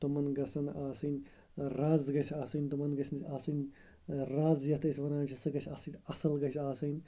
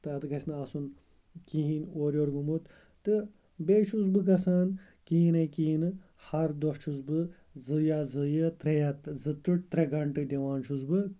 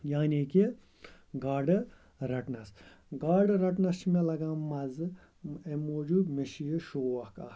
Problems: constant background noise